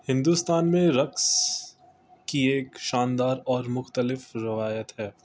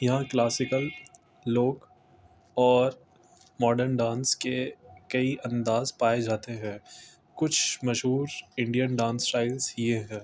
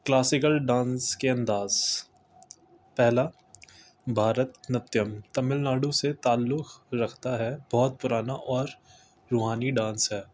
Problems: constant background noise